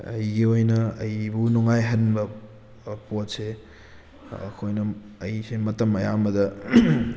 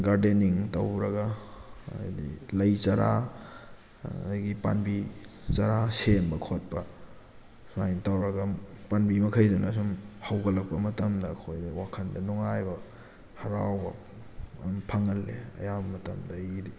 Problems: background sounds at intervals